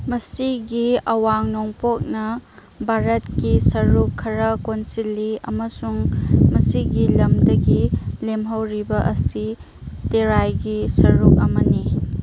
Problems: background sounds at intervals